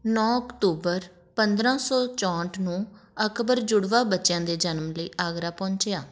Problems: none marked